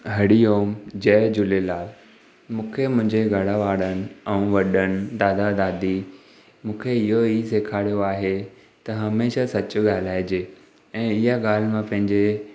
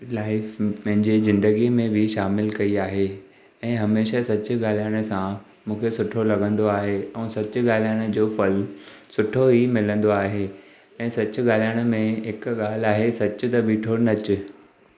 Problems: none marked